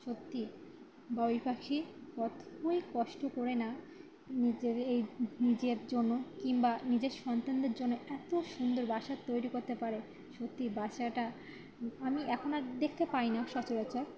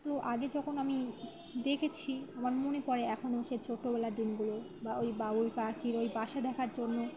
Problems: background sounds at intervals, continuous background conversations